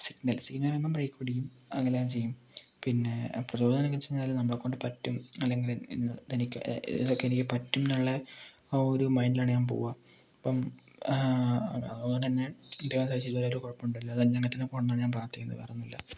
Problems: low volume